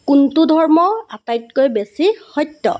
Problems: constant background noise